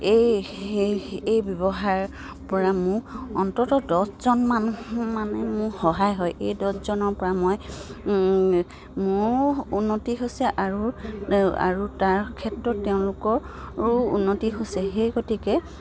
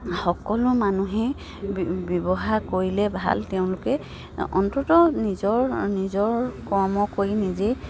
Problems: none marked